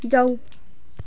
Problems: background sounds at intervals